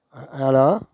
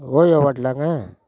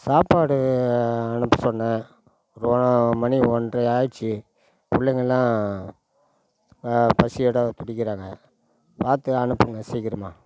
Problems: background sounds at intervals